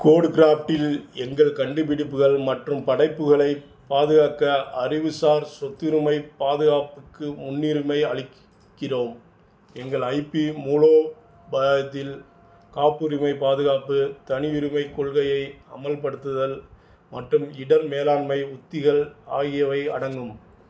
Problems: none marked